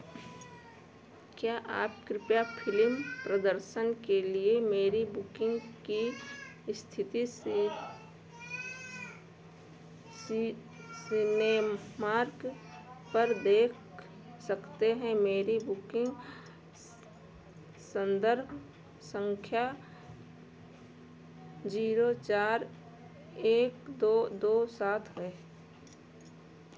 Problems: constant background noise